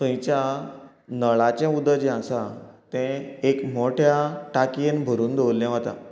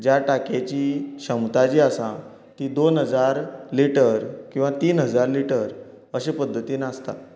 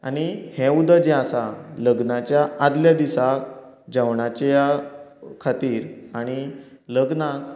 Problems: continuous background conversations